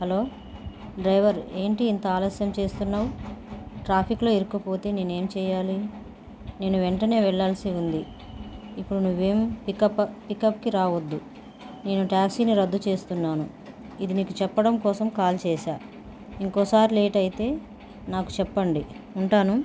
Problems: constant background noise